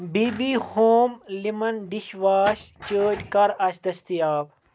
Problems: constant background noise, background conversations at intervals